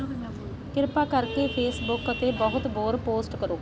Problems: constant background noise